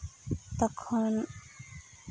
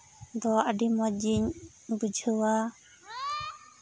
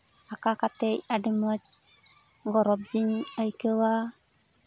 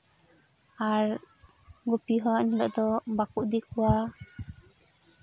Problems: constant background noise, background conversations at intervals